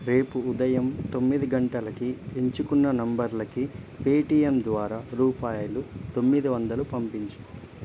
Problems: constant background noise